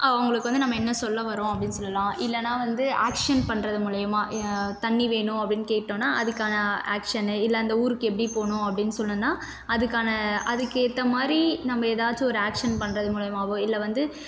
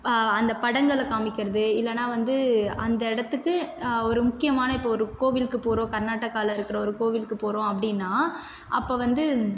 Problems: none marked